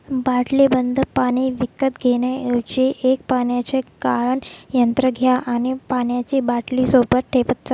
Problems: background sounds at intervals